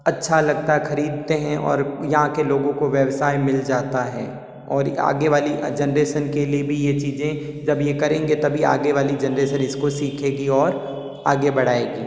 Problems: constant background noise, echo